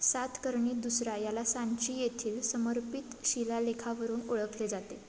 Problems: constant background noise